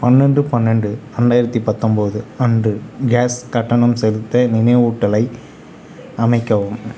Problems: none marked